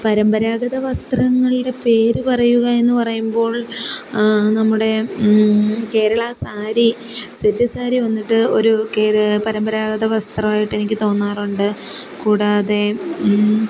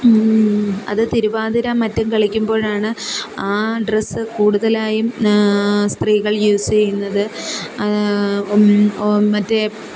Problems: constant background noise